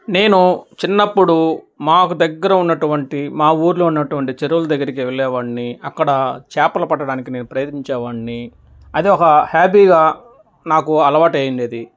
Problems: none marked